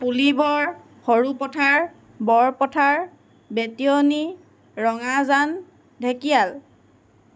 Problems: constant background noise